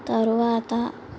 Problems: constant background noise